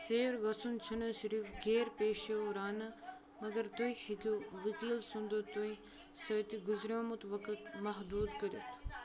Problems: continuous background conversations